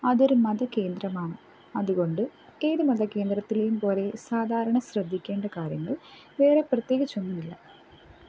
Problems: low volume